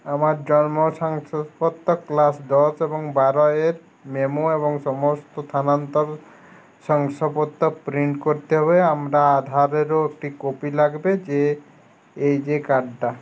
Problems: none marked